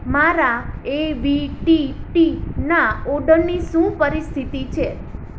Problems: constant background noise